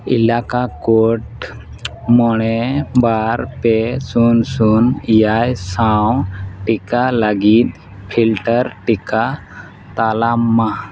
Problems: background sounds at intervals